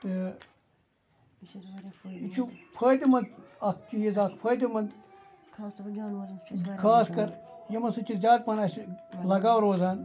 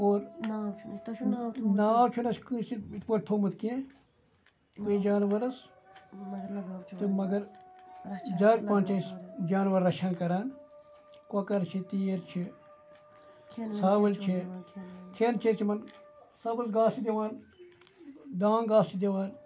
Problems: background sounds at intervals, background conversations at intervals